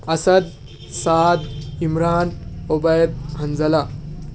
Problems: background sounds at intervals